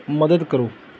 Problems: background sounds at intervals